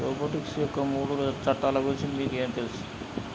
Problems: constant background noise